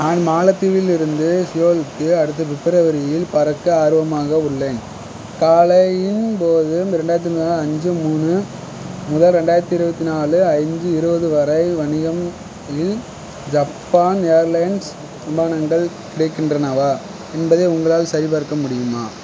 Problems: constant background noise